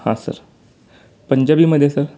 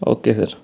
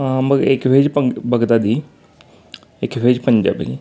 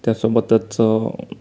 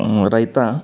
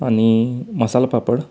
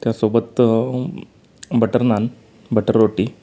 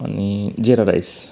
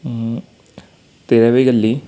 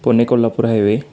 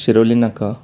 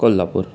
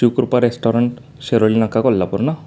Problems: constant background noise